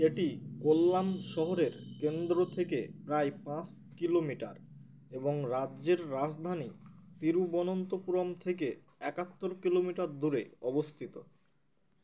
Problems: background sounds at intervals